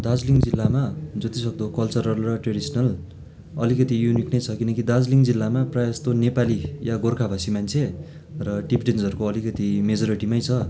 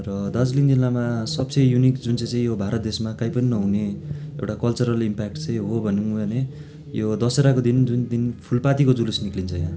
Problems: background sounds at intervals